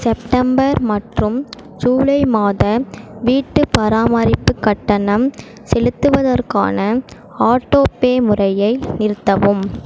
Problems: constant background noise